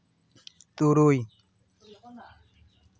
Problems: background conversations at intervals